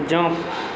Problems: constant background noise